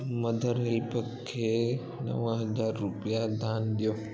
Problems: constant background noise